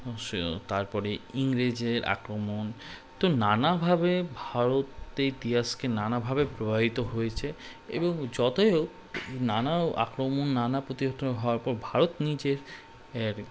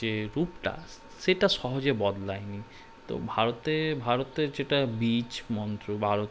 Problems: constant background noise